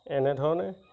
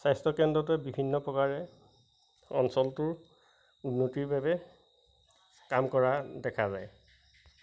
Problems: constant background noise, background conversations at intervals